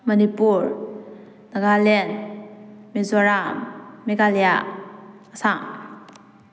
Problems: none marked